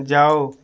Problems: none marked